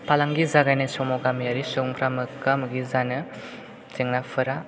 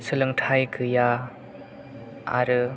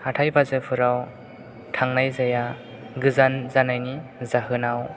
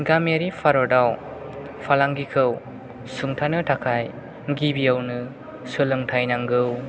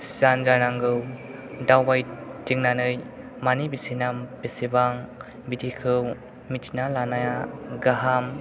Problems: background sounds at intervals